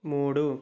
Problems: none marked